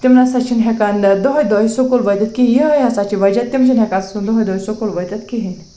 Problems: constant background noise